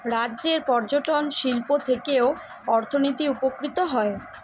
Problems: constant background noise